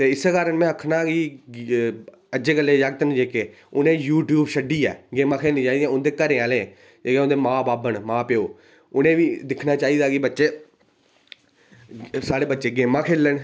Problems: none marked